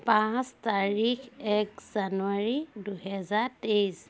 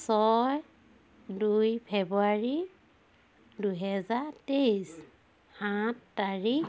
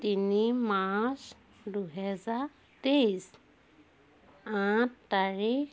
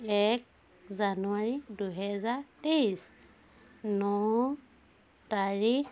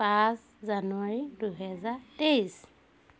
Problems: constant background noise